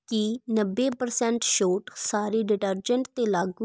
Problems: none marked